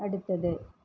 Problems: none marked